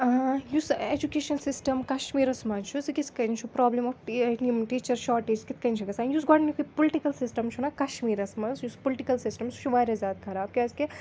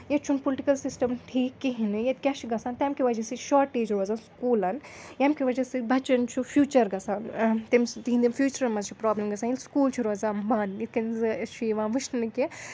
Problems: none marked